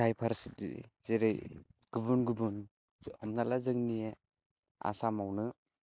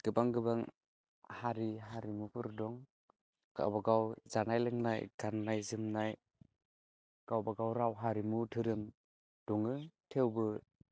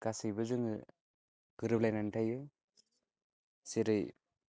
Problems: none marked